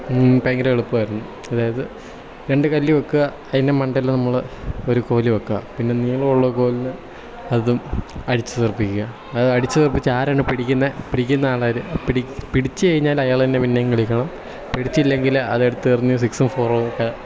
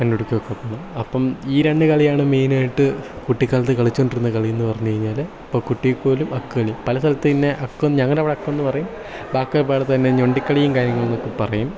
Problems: background sounds at intervals